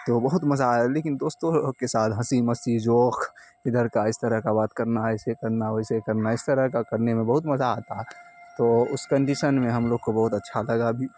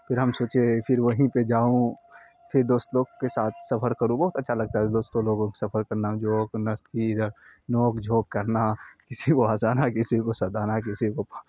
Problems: constant background noise